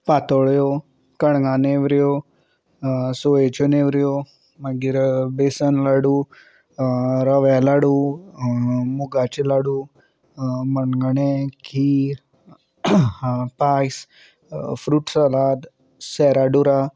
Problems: none marked